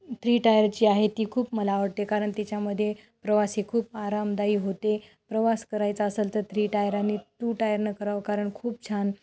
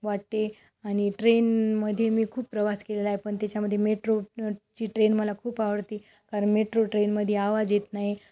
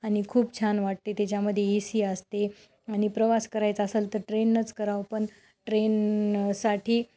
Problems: constant background noise